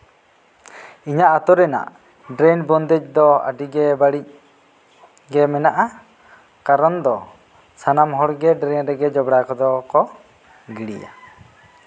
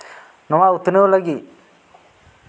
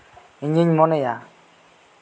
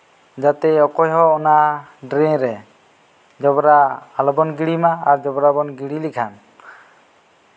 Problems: background sounds at intervals